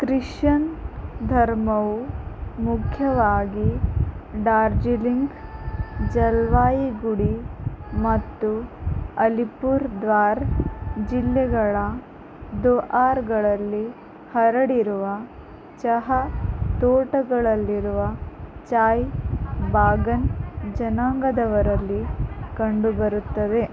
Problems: constant background noise